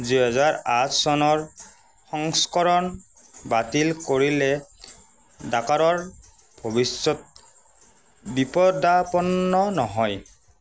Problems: constant background noise